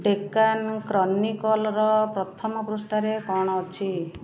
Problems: continuous background conversations